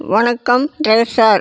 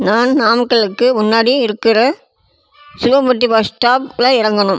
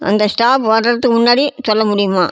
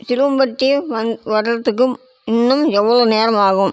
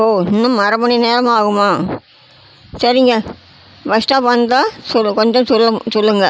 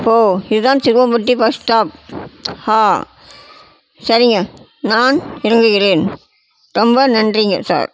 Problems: constant background noise